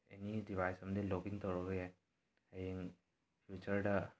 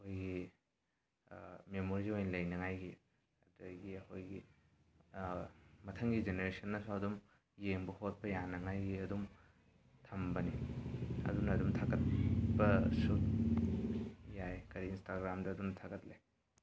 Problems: none marked